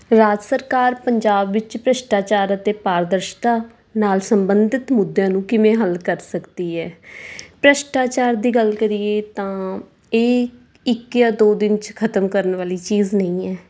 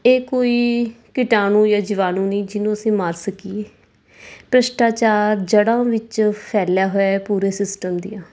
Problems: none marked